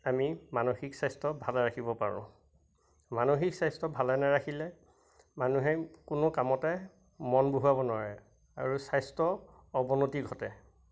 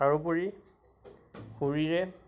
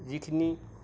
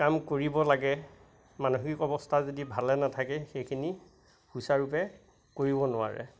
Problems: constant background noise, background conversations at intervals